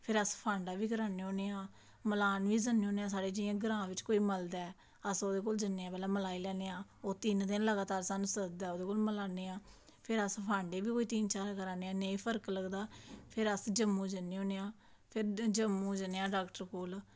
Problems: none marked